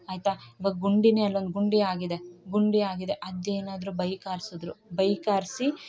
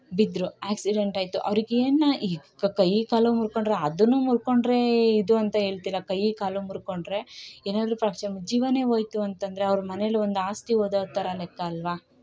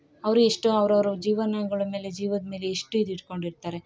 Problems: none marked